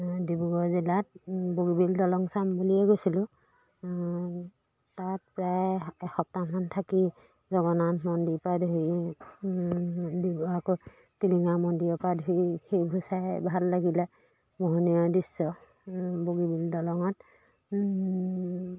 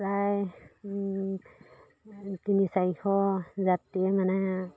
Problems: background sounds at intervals